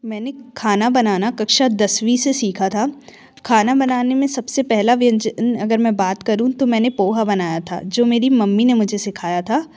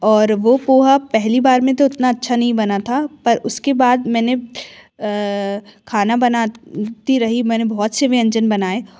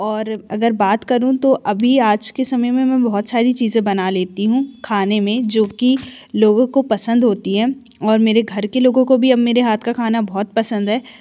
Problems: constant background noise